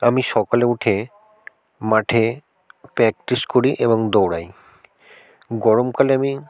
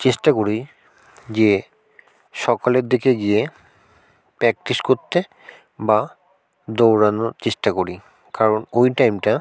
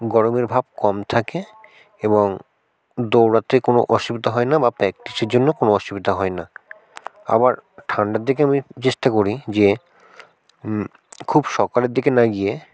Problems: constant background noise